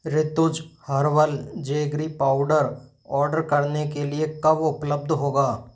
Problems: background sounds at intervals